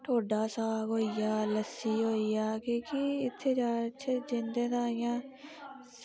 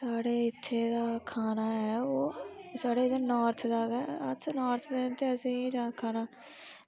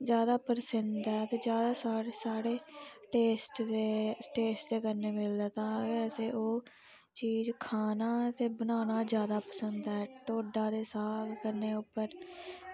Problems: low volume